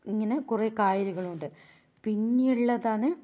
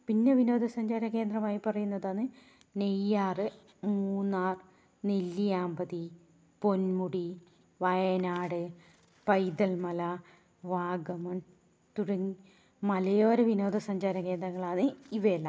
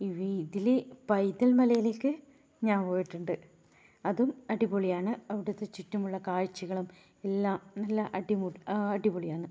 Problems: low volume